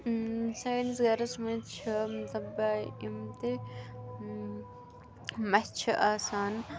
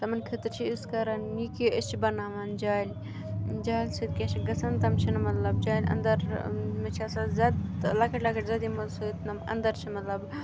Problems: none marked